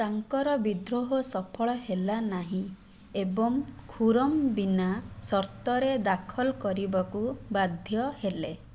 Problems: none marked